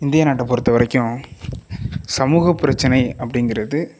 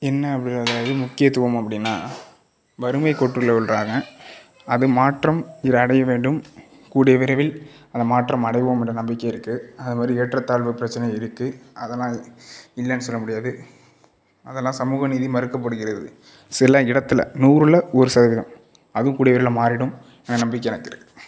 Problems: none marked